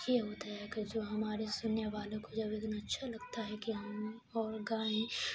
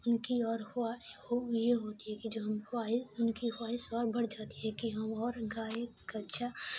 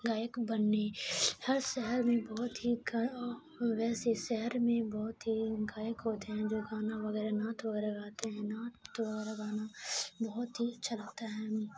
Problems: constant background noise